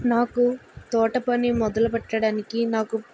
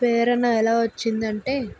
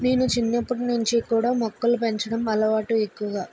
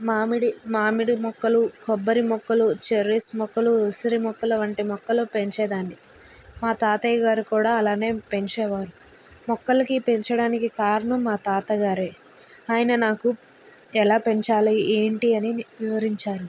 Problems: constant background noise